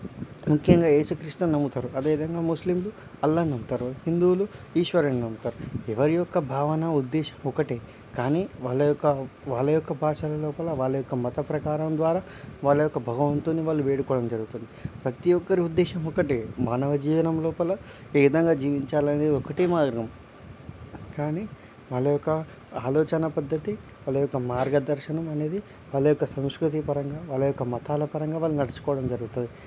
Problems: none marked